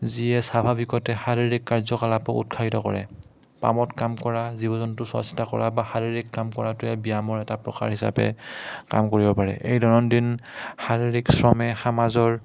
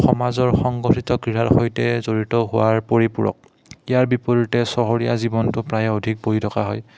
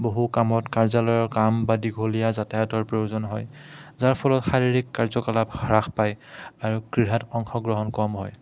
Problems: background sounds at intervals, background conversations at intervals